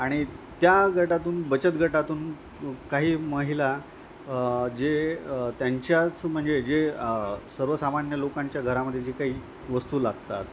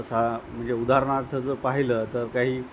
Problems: constant background noise, continuous background conversations